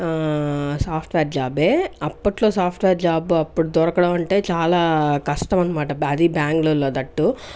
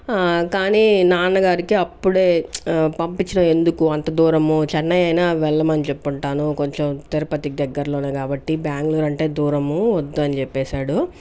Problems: none marked